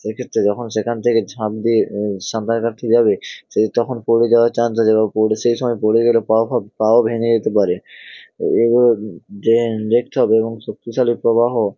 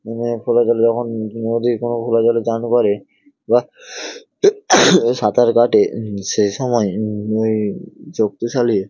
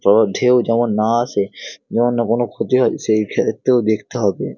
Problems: none marked